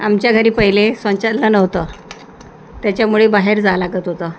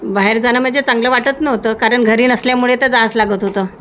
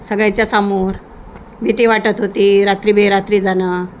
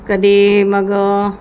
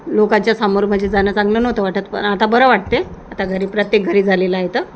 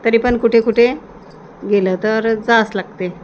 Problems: constant background noise